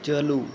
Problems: constant background noise